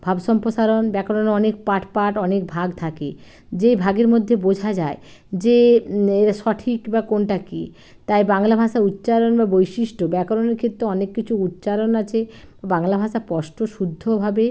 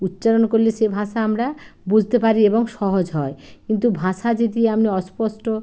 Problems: none marked